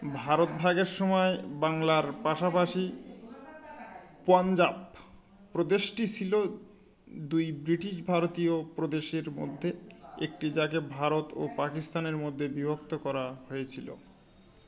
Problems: none marked